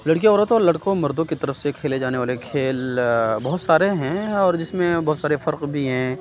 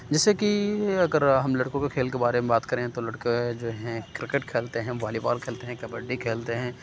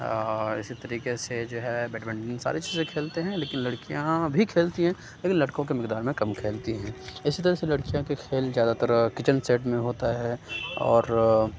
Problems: background sounds at intervals, background conversations at intervals